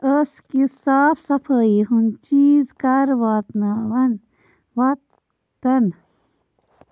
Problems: constant background noise